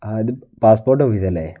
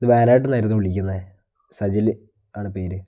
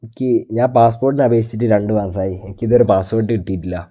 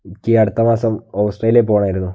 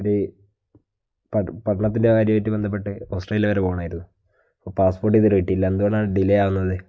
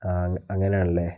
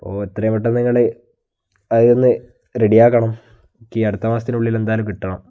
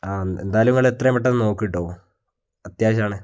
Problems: low volume